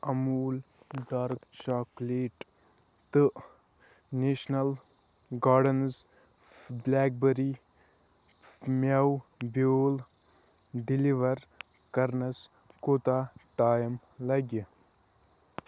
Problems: none marked